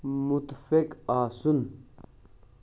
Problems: low volume